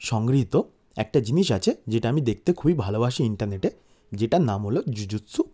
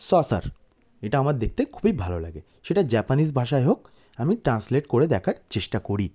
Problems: background sounds at intervals